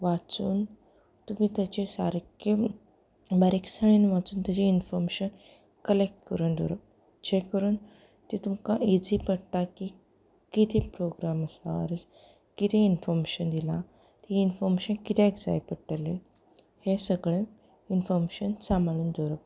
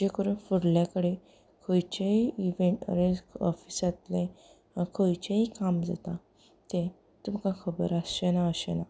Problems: background conversations at intervals